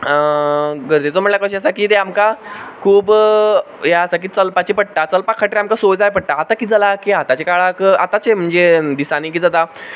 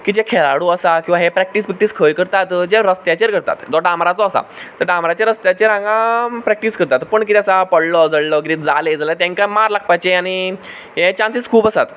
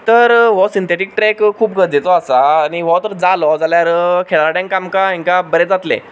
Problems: background sounds at intervals